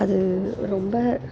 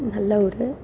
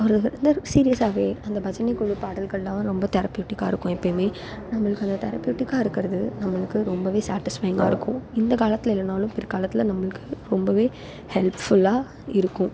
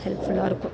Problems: none marked